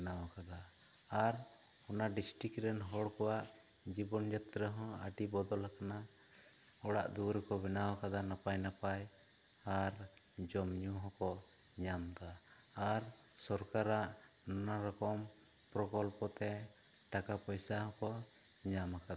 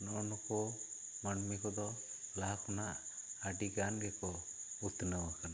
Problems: low volume